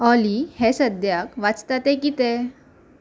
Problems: background sounds at intervals